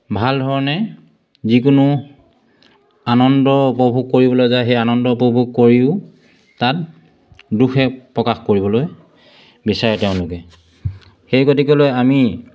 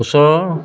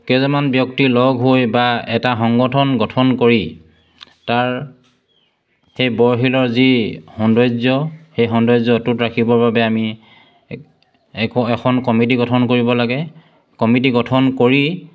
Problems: constant background noise